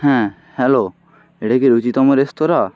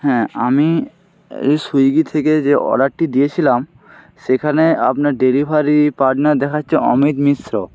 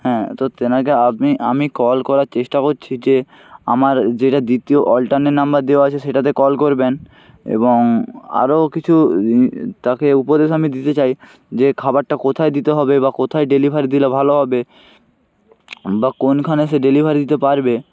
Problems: constant background noise